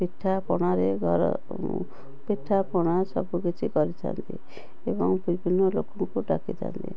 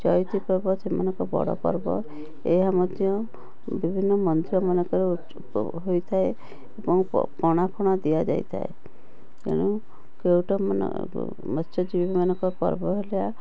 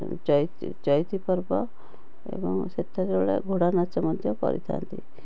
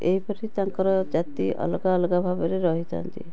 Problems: background sounds at intervals, background conversations at intervals